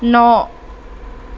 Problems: constant background noise